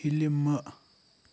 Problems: none marked